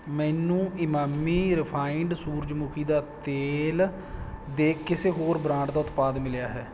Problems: none marked